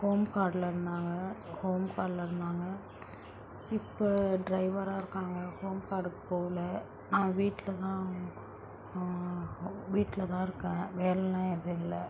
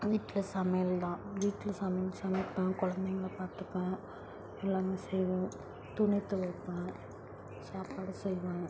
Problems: constant background noise